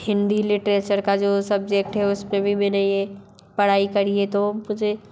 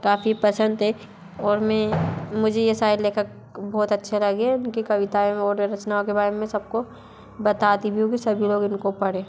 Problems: none marked